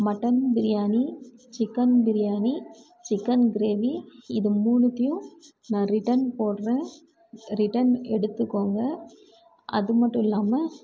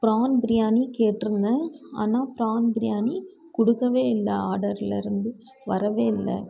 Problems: none marked